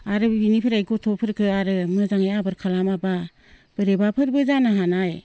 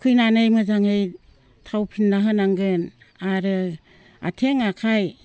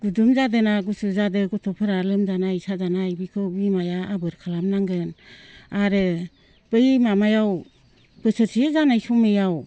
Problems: constant background noise